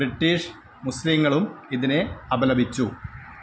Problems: constant background noise